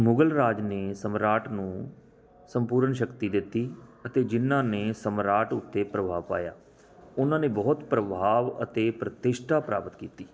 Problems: background sounds at intervals